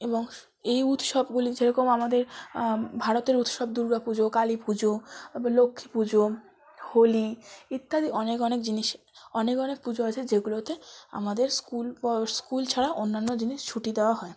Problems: background sounds at intervals, background conversations at intervals